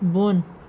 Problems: constant background noise